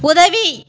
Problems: constant background noise